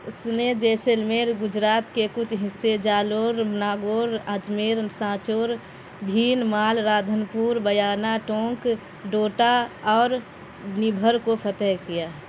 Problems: constant background noise